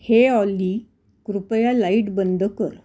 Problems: none marked